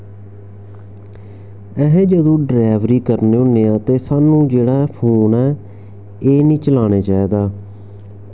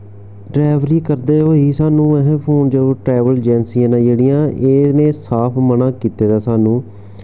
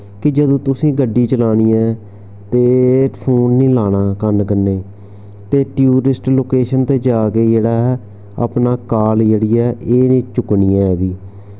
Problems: background sounds at intervals